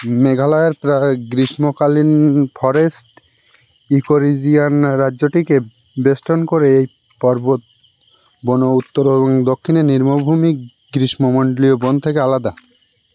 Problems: background sounds at intervals